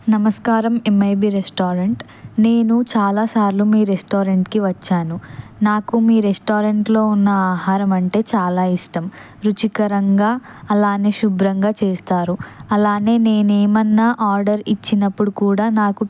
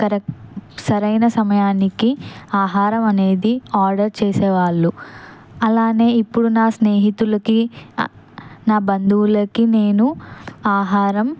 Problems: constant background noise